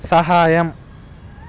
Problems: none marked